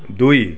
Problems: none marked